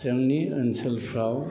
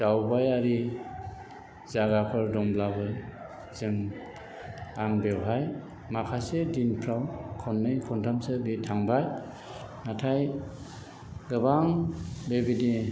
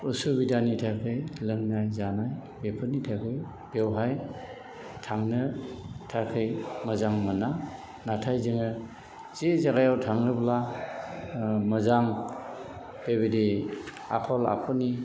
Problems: background sounds at intervals, background conversations at intervals